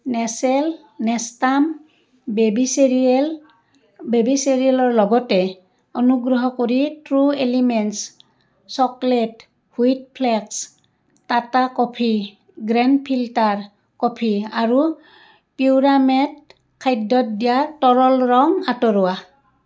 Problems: continuous background conversations